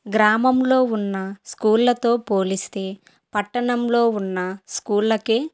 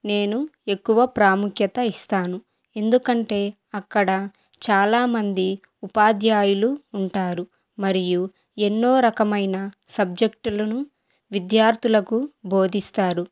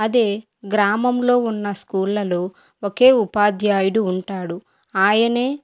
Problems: none marked